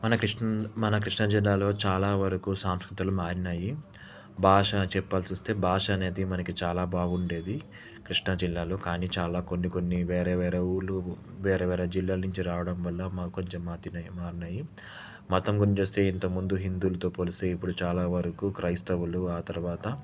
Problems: constant background noise